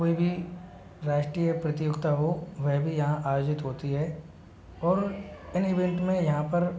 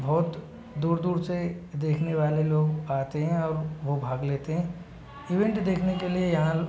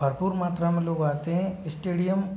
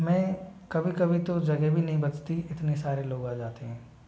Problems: low volume